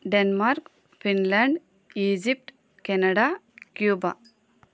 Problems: constant background noise